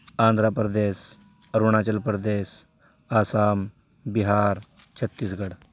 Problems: constant background noise